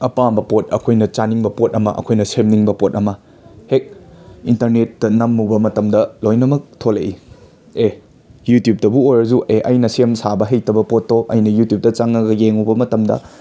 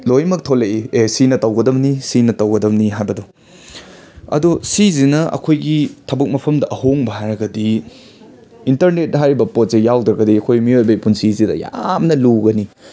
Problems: constant background noise, background conversations at intervals